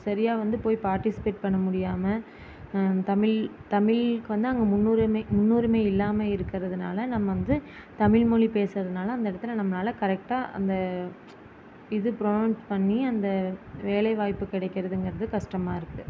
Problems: constant background noise